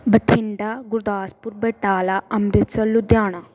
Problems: background sounds at intervals